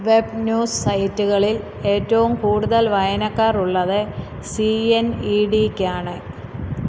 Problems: background sounds at intervals